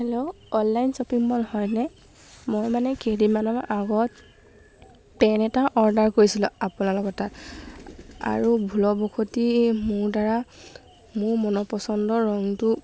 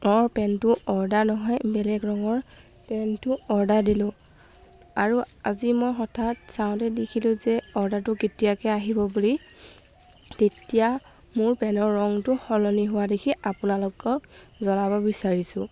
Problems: background sounds at intervals